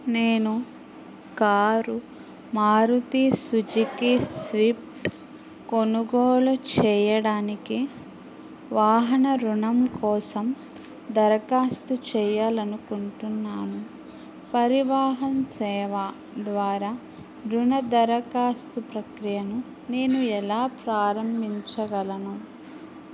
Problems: constant background noise